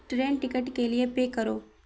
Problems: constant background noise